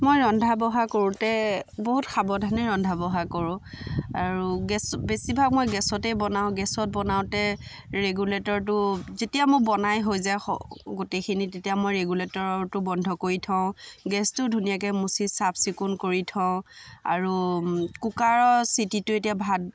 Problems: background sounds at intervals, background conversations at intervals